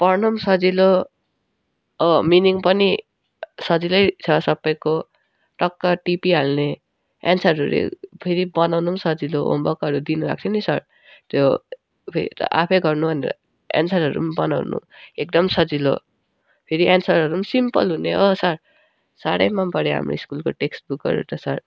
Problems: none marked